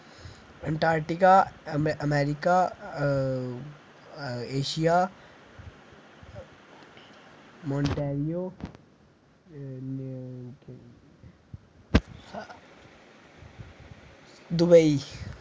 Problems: none marked